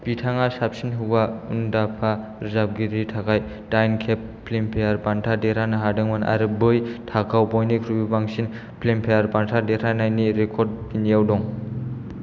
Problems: none marked